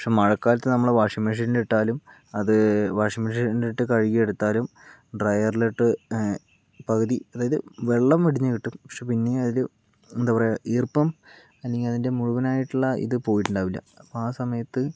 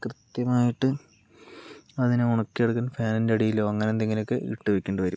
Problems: constant background noise, low volume